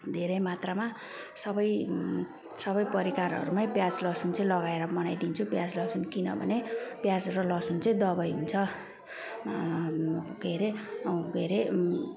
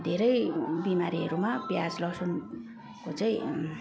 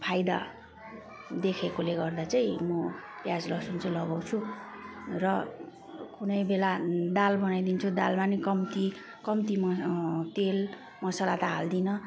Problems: none marked